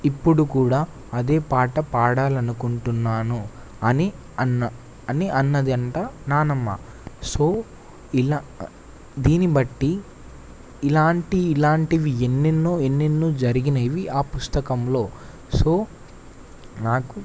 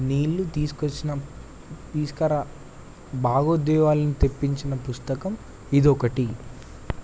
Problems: constant background noise